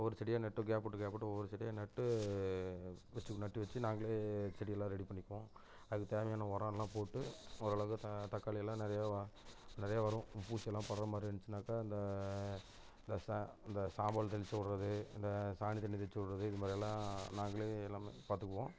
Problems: constant background noise